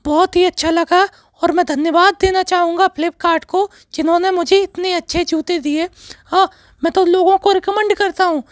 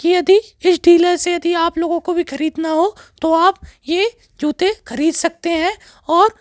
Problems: none marked